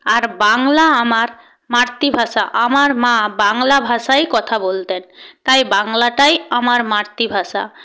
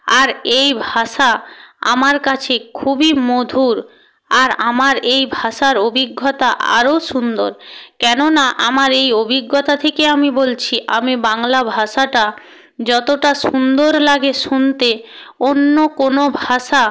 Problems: none marked